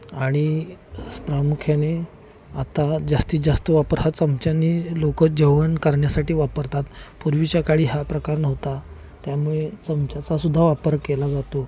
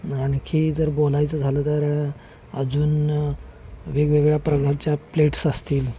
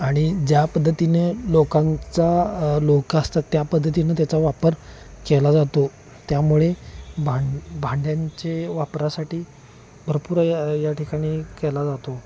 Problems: constant background noise, background conversations at intervals